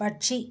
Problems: low volume